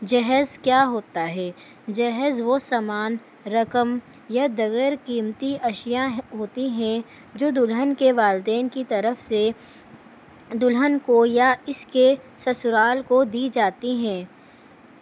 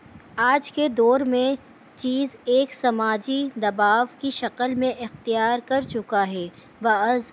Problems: constant background noise